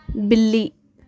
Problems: background sounds at intervals